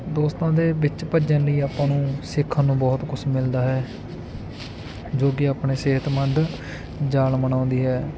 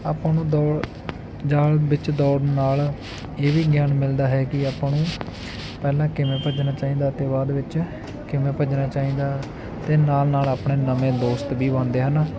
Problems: continuous background conversations